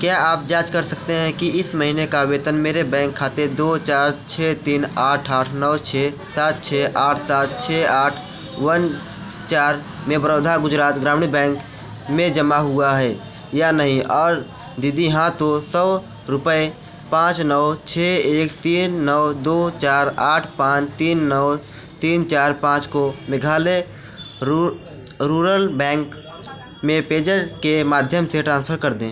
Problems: none marked